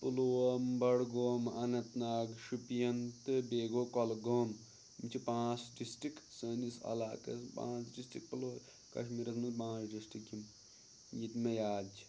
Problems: background sounds at intervals